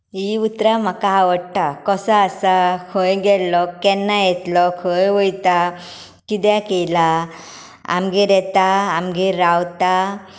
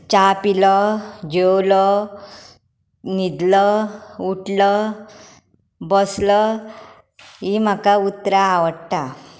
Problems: background sounds at intervals